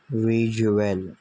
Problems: constant background noise, low volume